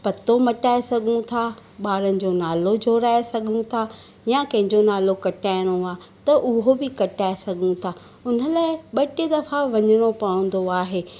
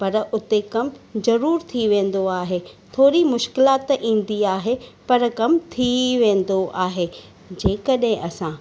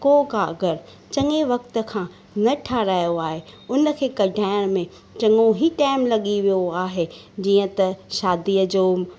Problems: none marked